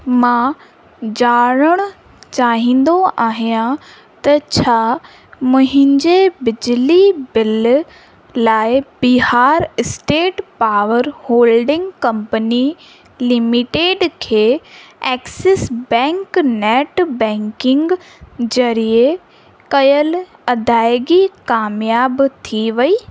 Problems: constant background noise